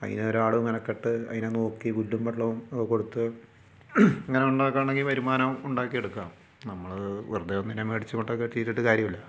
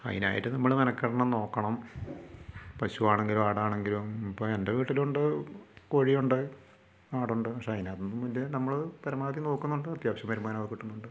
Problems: low volume